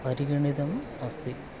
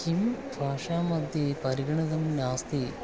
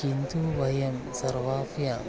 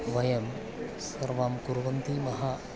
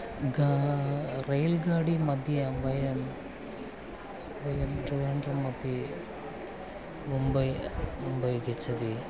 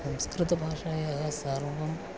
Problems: background sounds at intervals